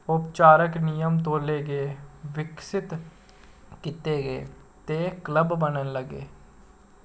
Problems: constant background noise